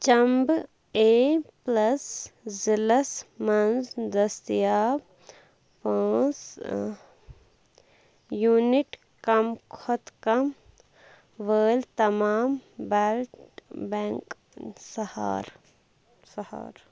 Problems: constant background noise